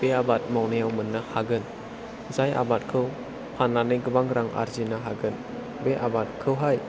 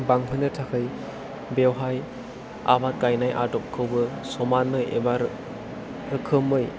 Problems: none marked